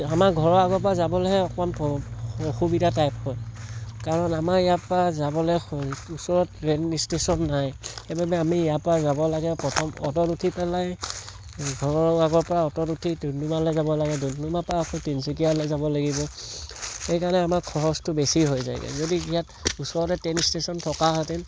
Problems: constant background noise